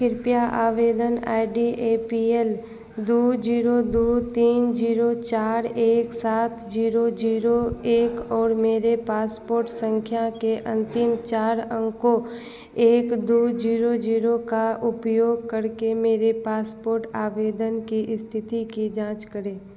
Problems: constant background noise